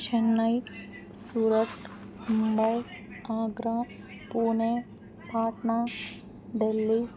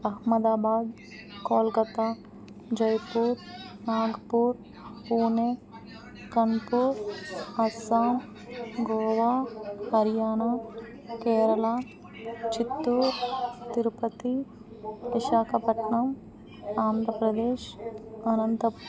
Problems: constant background noise